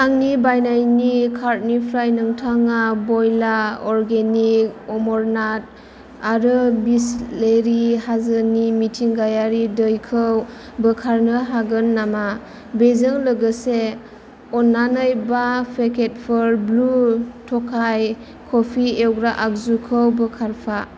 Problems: constant background noise